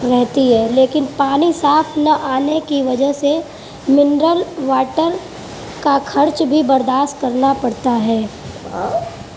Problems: background sounds at intervals